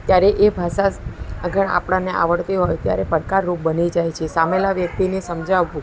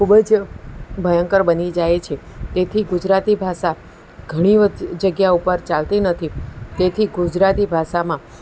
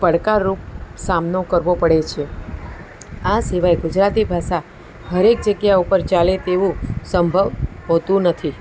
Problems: continuous background conversations